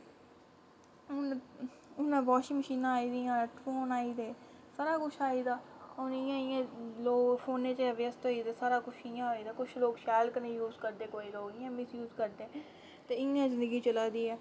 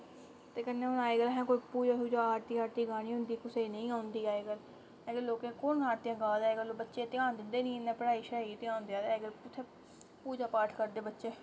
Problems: constant background noise